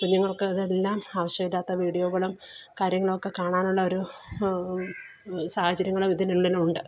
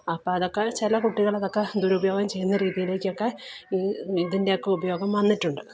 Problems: low volume